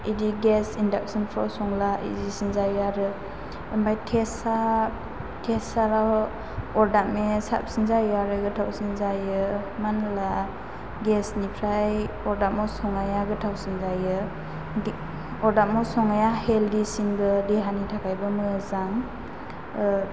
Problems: constant background noise